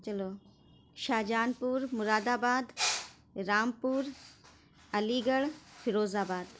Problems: constant background noise